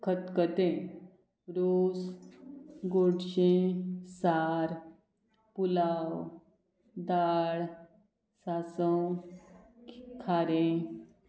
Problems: none marked